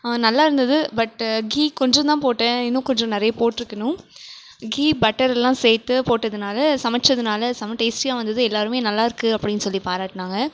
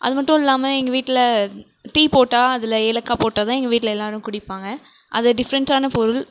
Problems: none marked